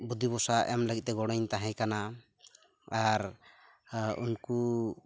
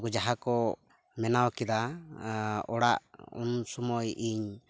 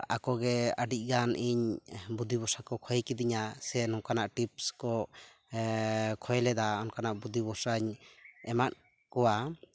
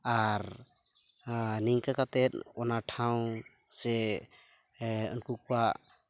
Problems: background sounds at intervals